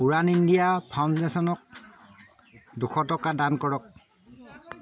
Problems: none marked